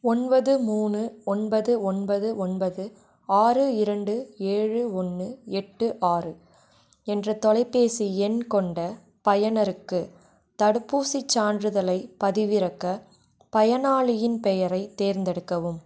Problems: constant background noise